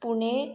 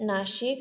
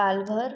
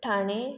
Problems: echo